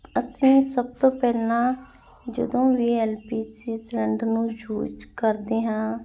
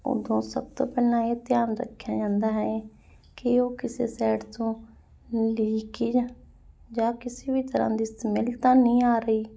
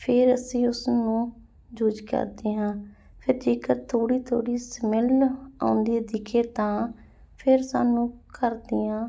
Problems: none marked